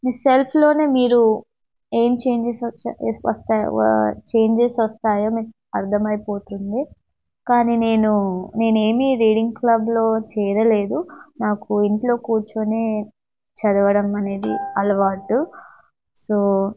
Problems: none marked